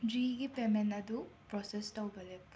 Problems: background sounds at intervals